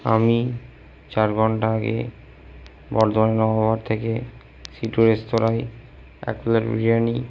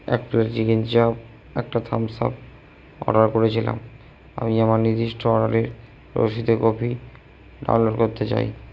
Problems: low volume